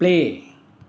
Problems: none marked